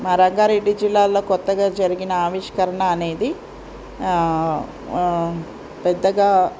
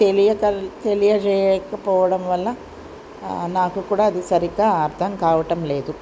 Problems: none marked